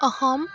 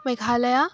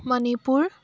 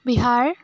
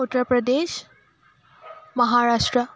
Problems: constant background noise